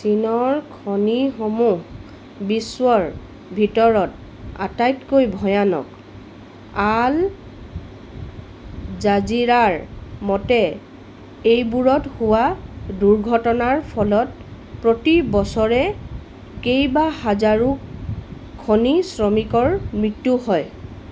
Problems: constant background noise